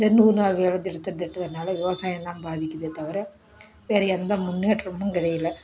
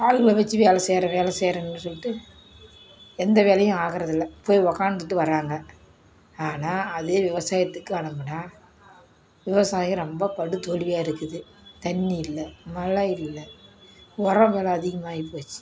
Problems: none marked